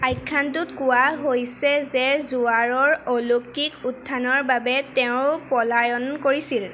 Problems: background sounds at intervals